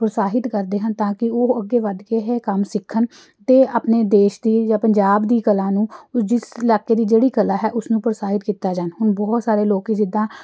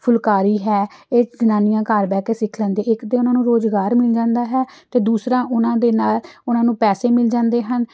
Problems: none marked